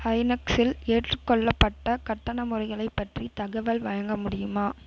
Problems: constant background noise